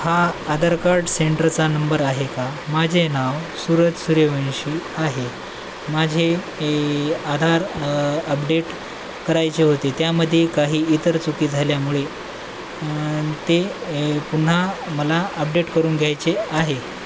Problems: constant background noise